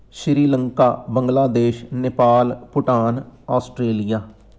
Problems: none marked